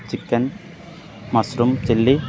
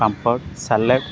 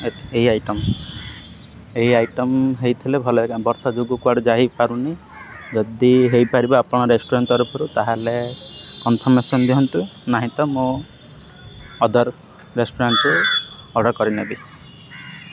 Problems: constant background noise